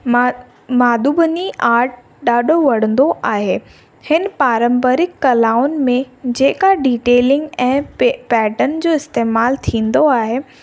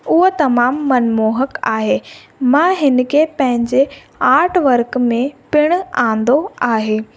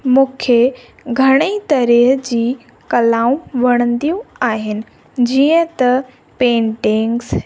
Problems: constant background noise, echo